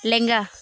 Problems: none marked